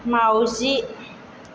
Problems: constant background noise